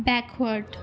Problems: none marked